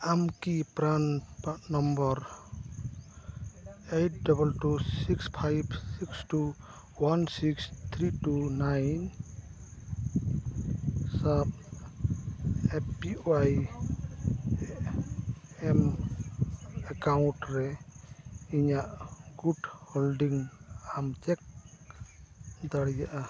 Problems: background sounds at intervals, background conversations at intervals